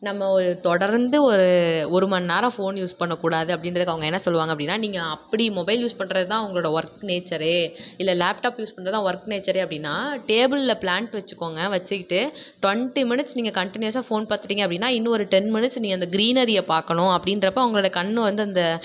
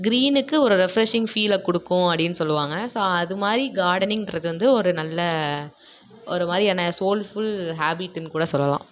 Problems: background sounds at intervals